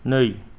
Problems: none marked